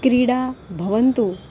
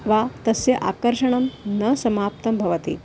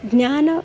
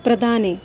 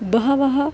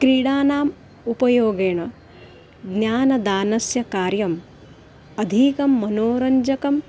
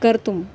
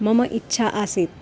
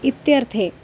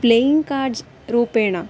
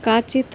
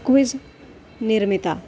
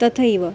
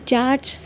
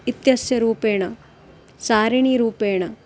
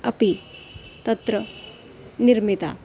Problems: none marked